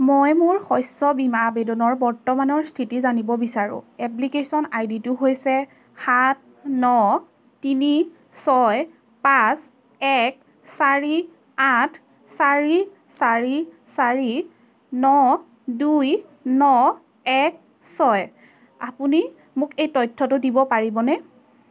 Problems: constant background noise, background conversations at intervals